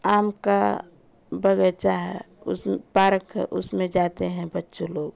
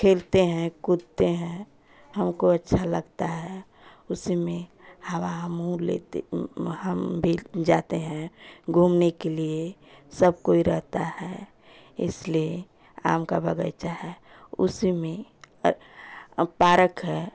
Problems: constant background noise